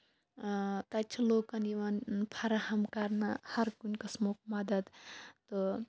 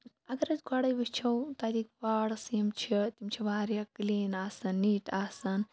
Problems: background sounds at intervals, background conversations at intervals